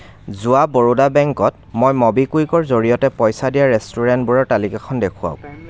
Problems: background conversations at intervals